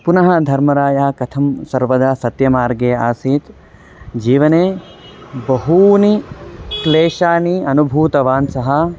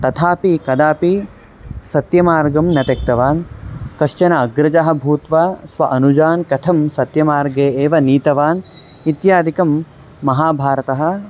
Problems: constant background noise, background conversations at intervals